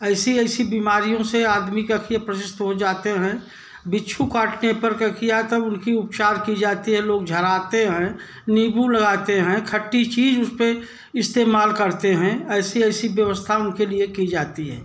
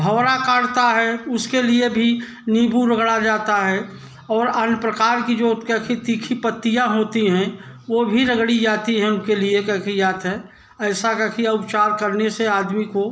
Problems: none marked